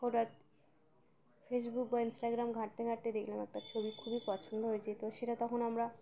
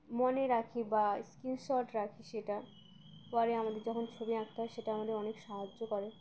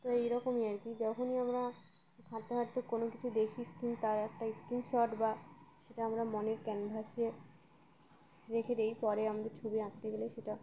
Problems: constant background noise, continuous background conversations